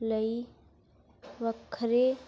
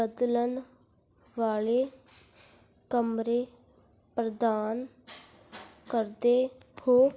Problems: constant background noise